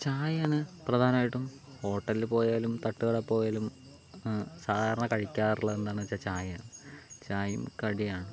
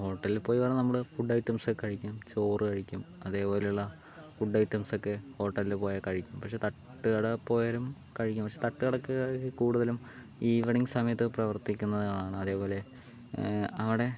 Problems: constant background noise, low volume